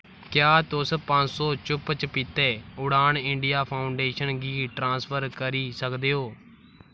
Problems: background sounds at intervals